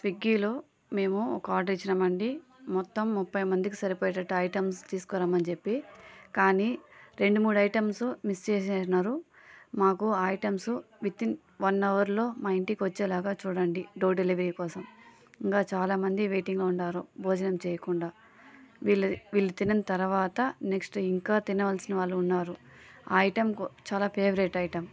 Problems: constant background noise, background conversations at intervals